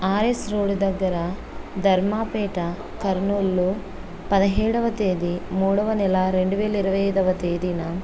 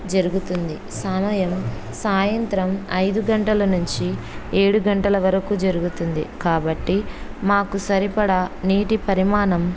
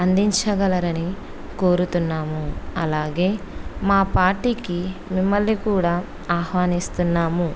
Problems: constant background noise